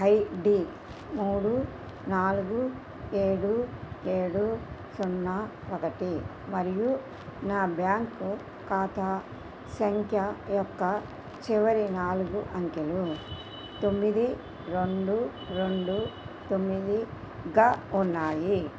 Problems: constant background noise